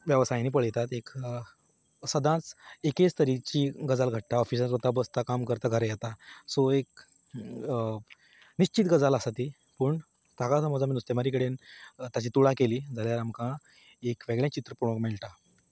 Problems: none marked